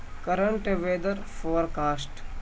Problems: constant background noise